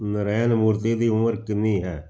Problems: none marked